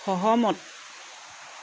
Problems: none marked